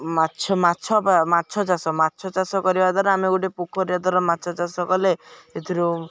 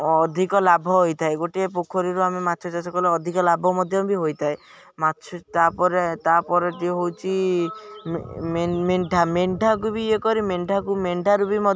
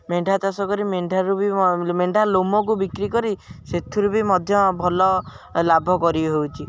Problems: background sounds at intervals